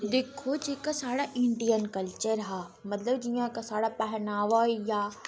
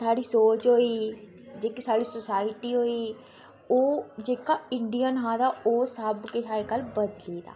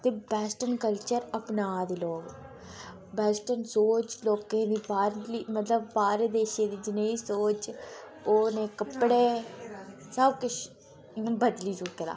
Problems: constant background noise